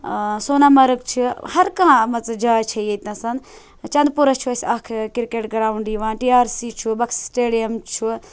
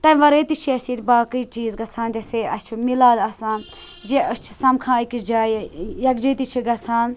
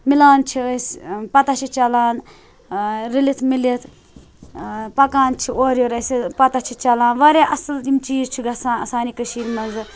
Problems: background sounds at intervals